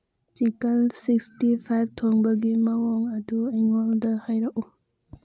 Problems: none marked